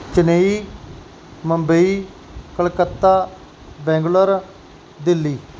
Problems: background conversations at intervals